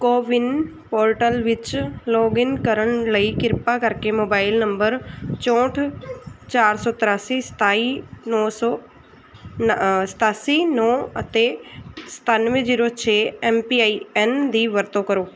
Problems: background sounds at intervals